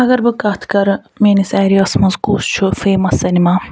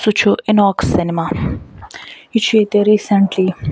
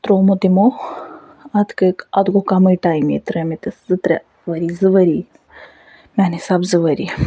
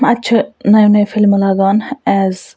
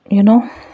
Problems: none marked